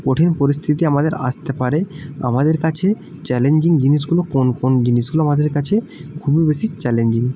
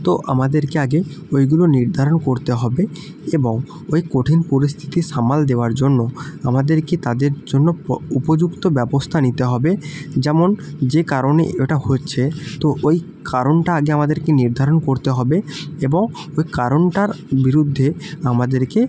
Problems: constant background noise